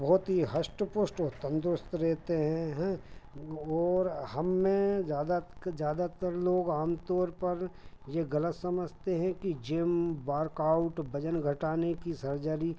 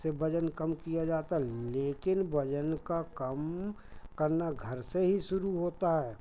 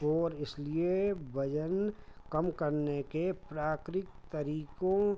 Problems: none marked